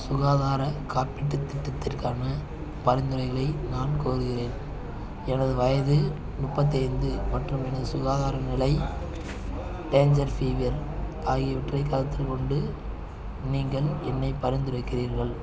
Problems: constant background noise, continuous background conversations